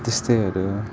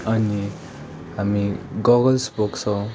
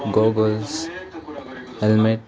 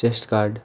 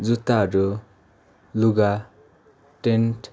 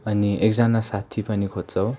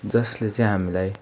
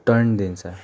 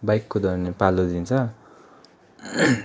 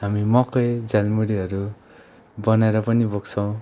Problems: constant background noise